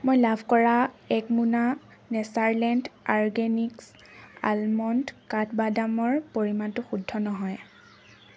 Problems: constant background noise